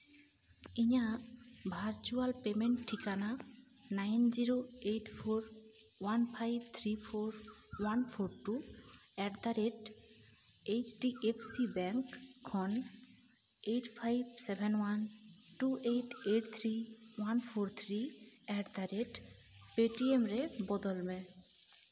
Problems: background sounds at intervals